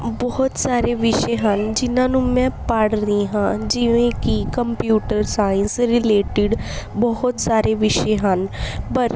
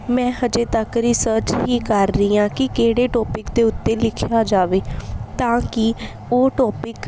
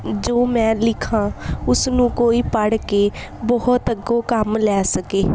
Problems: background sounds at intervals